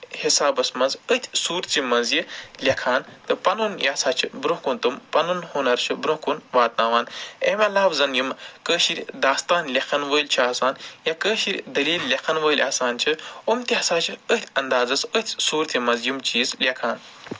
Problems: background sounds at intervals